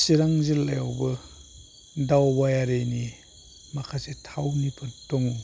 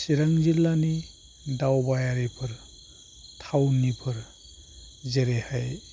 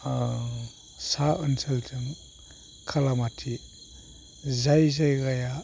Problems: low volume